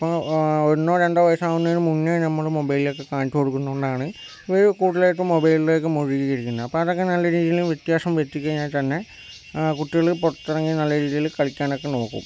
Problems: none marked